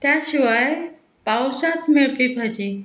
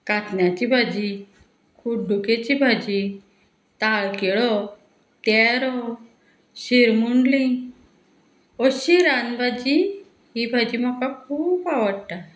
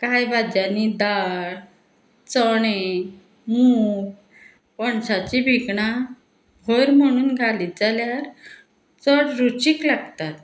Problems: background sounds at intervals